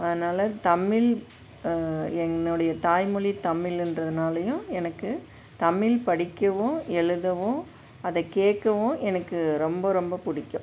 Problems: constant background noise